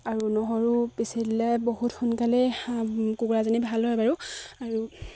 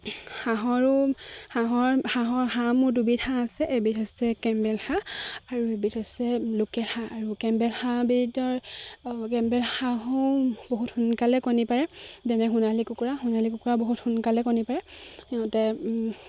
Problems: constant background noise, background conversations at intervals